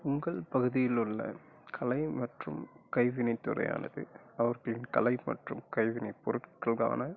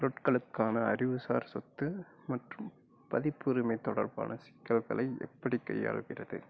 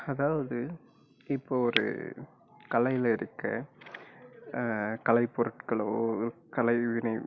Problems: none marked